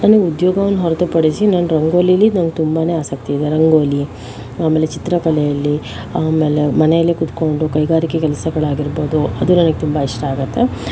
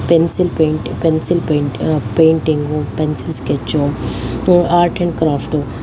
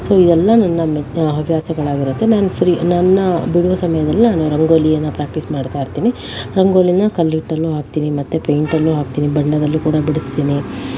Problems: constant background noise